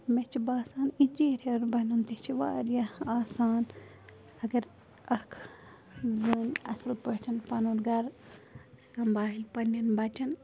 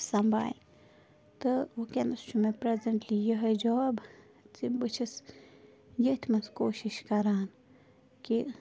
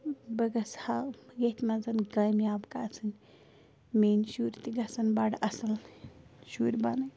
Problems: background sounds at intervals